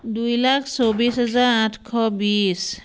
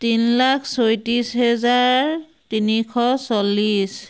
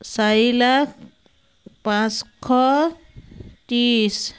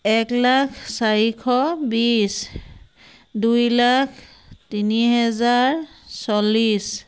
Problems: none marked